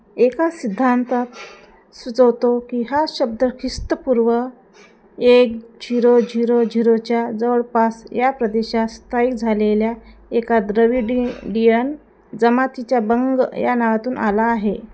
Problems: none marked